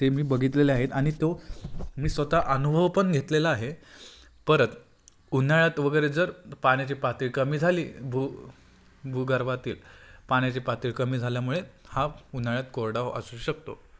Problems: constant background noise